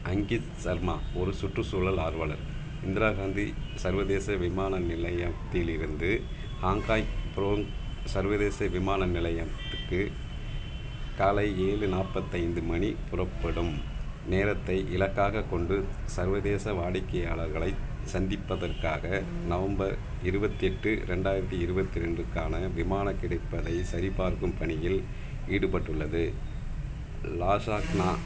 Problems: constant background noise